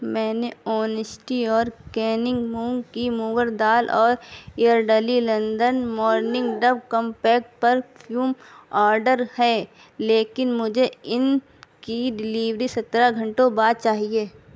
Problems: background conversations at intervals